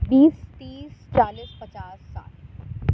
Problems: constant background noise, low volume